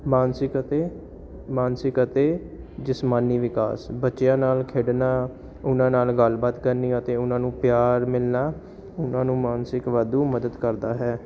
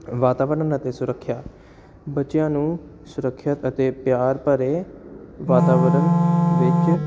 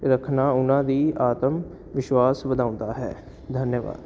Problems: constant background noise